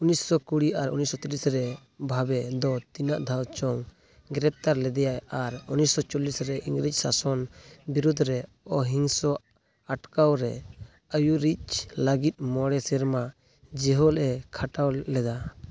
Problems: background sounds at intervals, background conversations at intervals